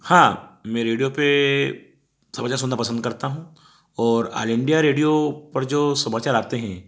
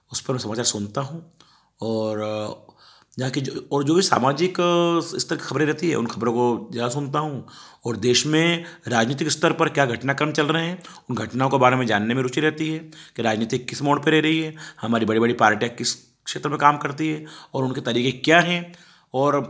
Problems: background sounds at intervals